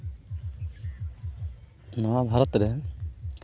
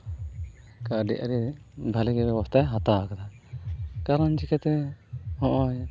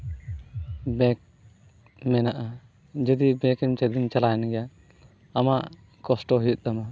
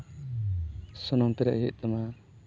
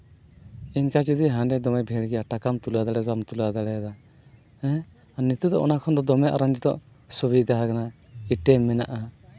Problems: background sounds at intervals